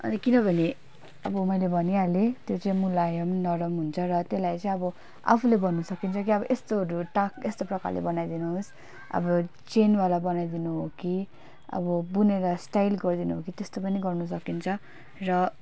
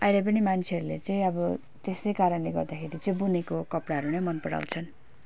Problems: none marked